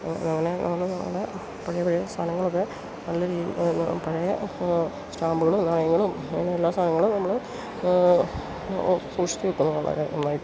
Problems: constant background noise